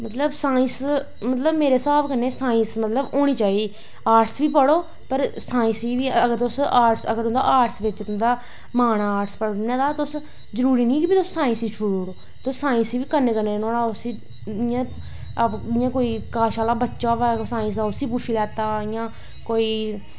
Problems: none marked